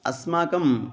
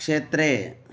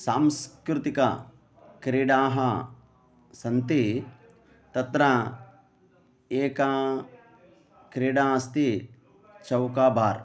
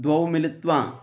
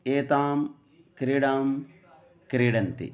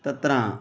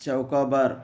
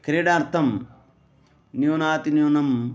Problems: background sounds at intervals